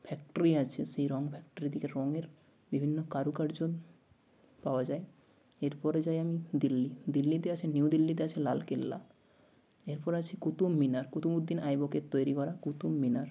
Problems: none marked